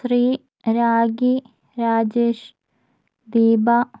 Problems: low volume